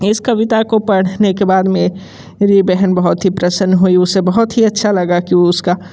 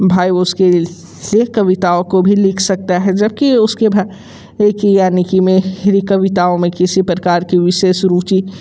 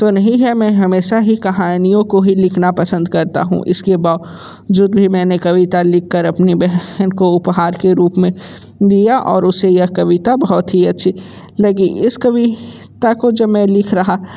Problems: constant background noise